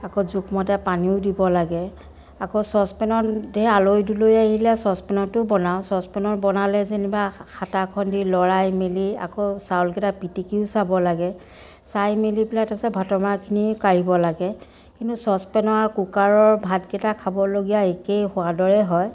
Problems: continuous background conversations